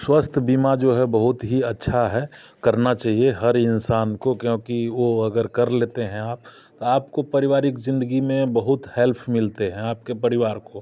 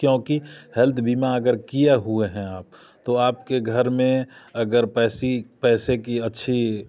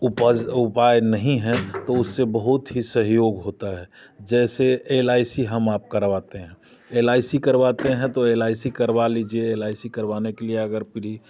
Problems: background sounds at intervals